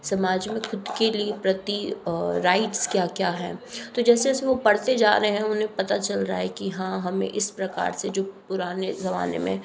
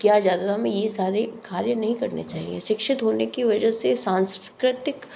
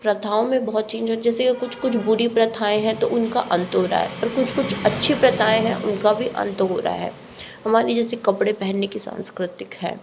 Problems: background sounds at intervals